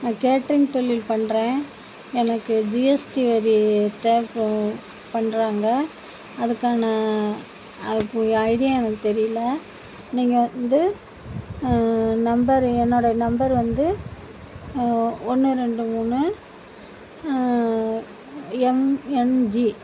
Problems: constant background noise